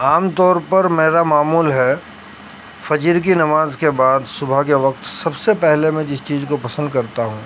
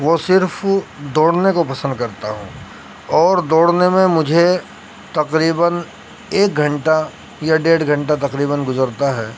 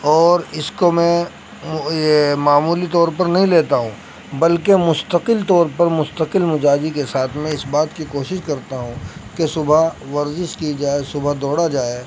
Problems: constant background noise